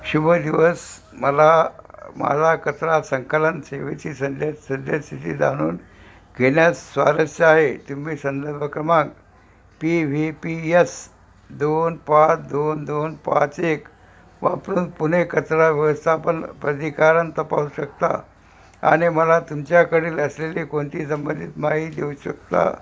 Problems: none marked